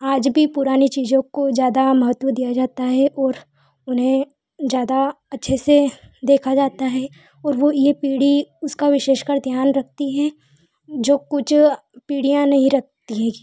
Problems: constant background noise